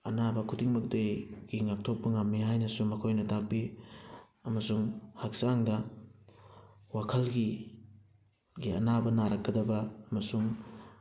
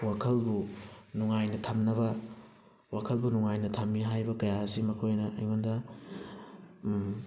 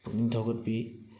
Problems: background sounds at intervals